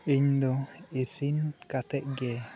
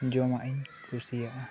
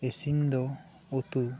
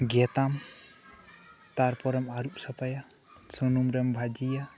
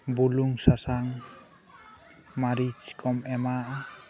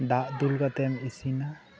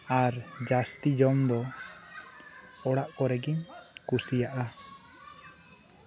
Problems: continuous background conversations